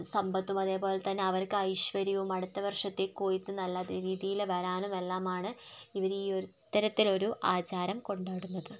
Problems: none marked